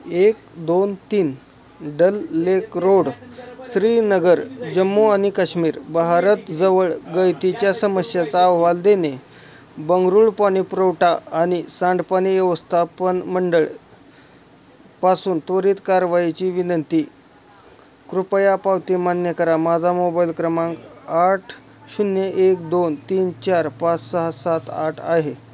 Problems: constant background noise, background conversations at intervals